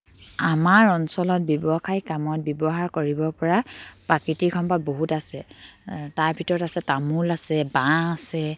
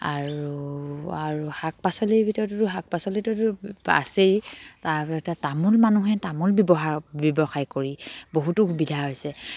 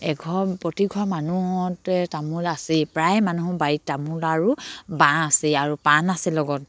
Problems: none marked